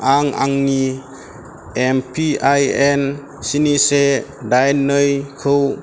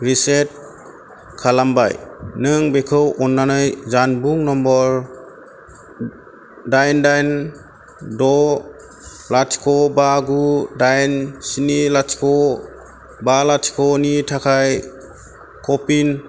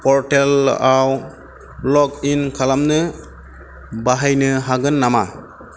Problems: constant background noise